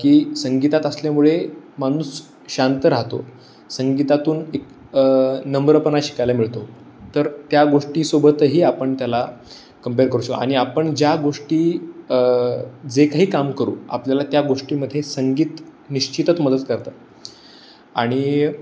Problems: none marked